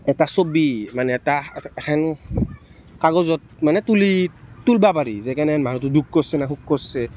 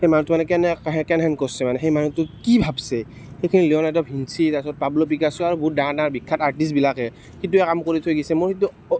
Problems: background sounds at intervals, background conversations at intervals